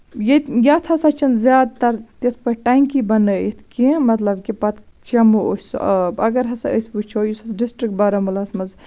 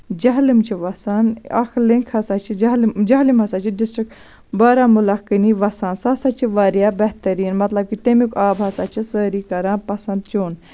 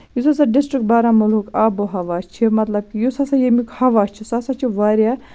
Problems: none marked